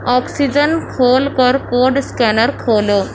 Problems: constant background noise